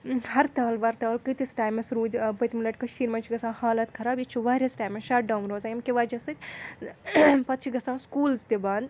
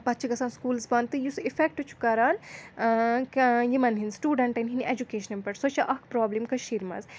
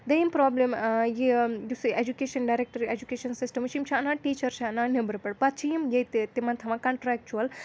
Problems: none marked